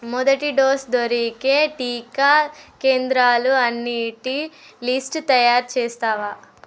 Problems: none marked